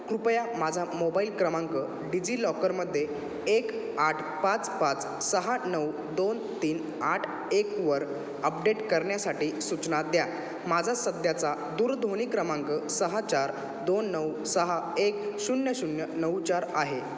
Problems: none marked